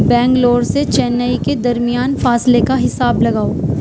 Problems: constant background noise, background conversations at intervals